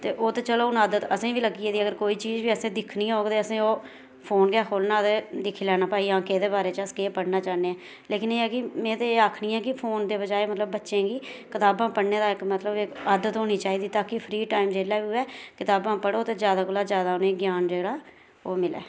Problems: none marked